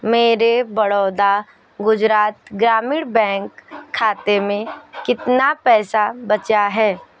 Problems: constant background noise